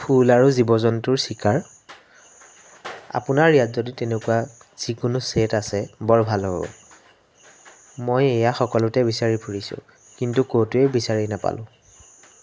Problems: background sounds at intervals